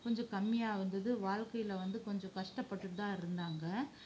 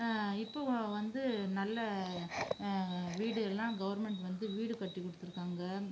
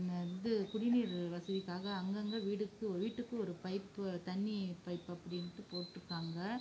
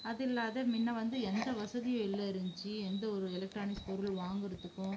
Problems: low volume